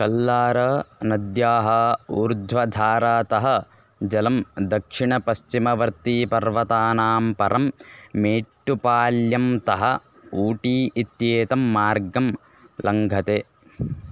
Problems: constant background noise